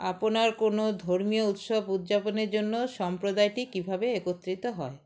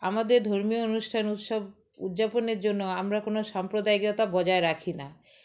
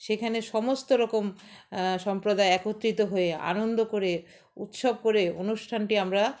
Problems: constant background noise, background conversations at intervals